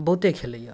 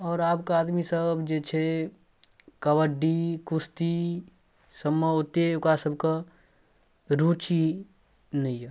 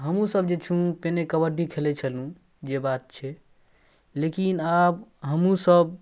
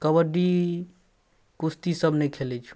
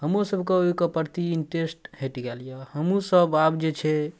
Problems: none marked